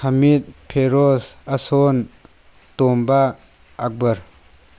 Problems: constant background noise